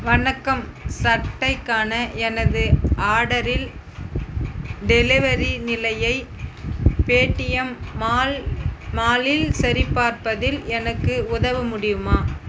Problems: constant background noise